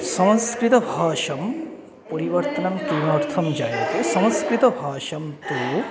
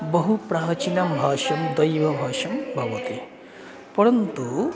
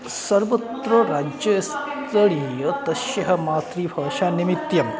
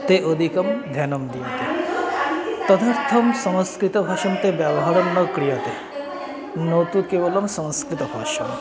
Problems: none marked